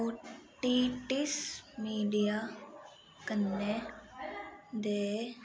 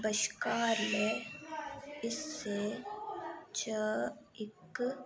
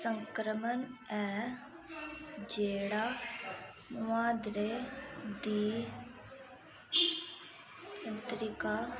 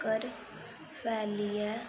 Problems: constant background noise